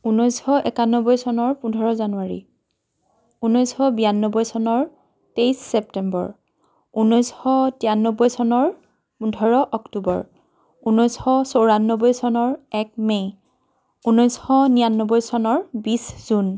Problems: constant background noise